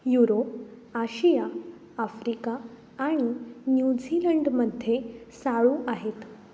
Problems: constant background noise